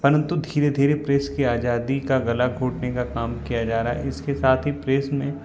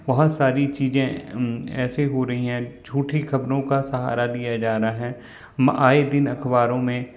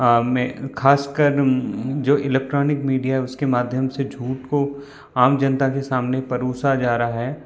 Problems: constant background noise